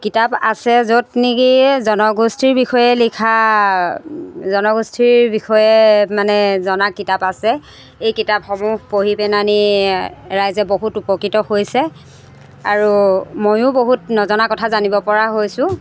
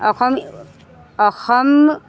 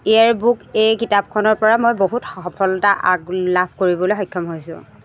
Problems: none marked